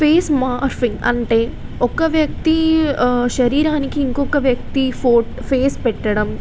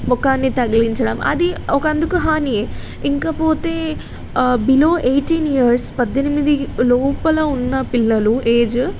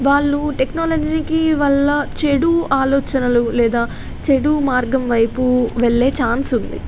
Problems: constant background noise